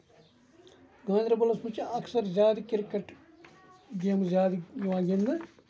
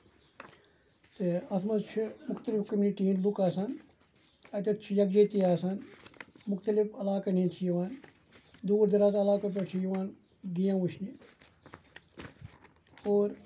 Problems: background sounds at intervals, low volume